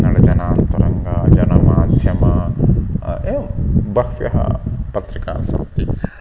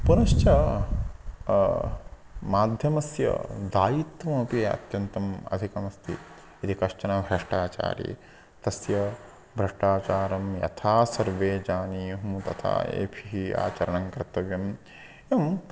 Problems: constant background noise